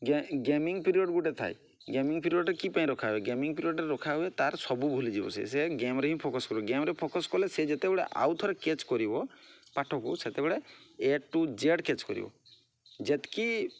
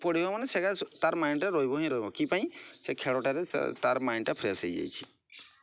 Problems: none marked